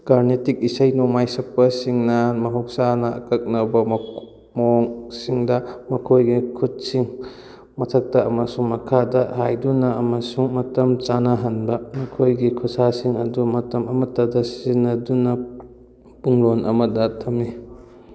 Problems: background sounds at intervals